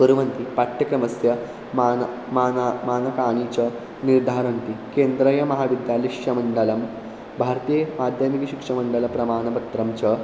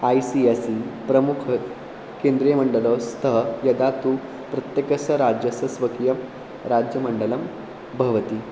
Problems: constant background noise